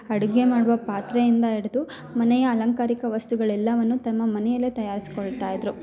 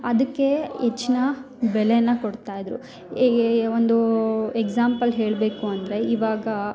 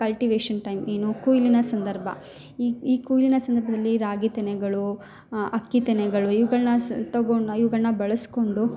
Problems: none marked